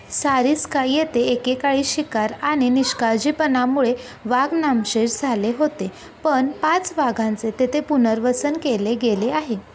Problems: none marked